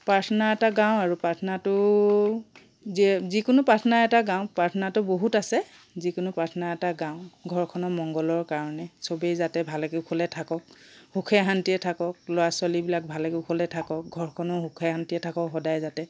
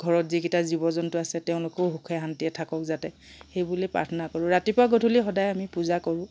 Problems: none marked